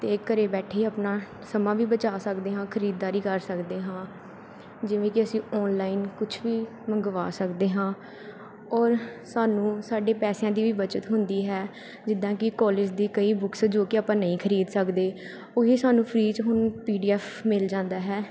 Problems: background sounds at intervals